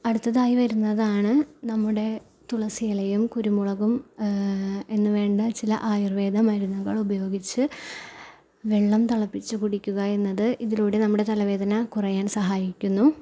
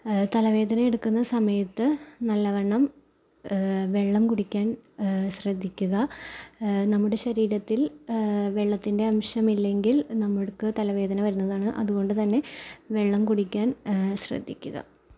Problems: none marked